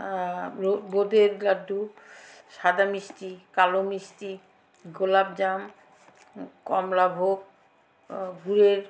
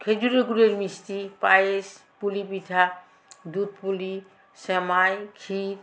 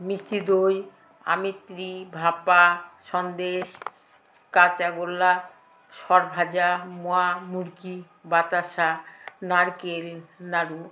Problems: constant background noise